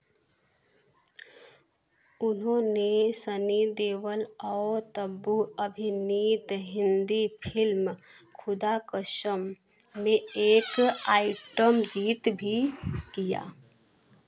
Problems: background sounds at intervals